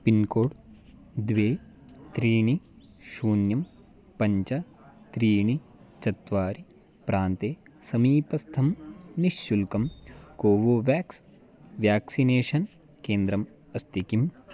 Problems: none marked